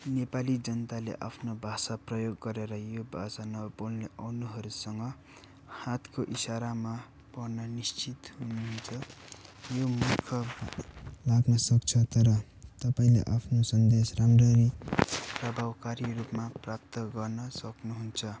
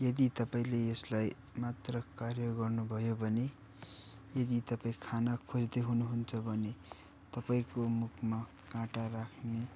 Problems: none marked